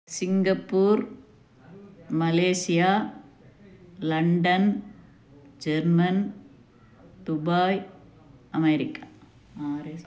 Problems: none marked